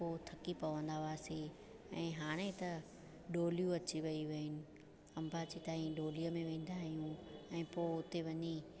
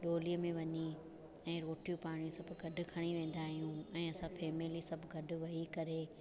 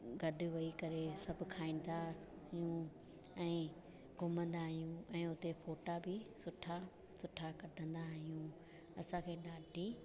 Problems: constant background noise, echo